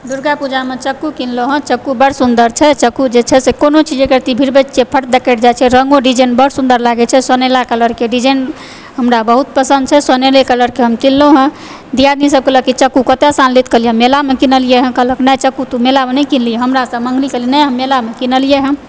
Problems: background sounds at intervals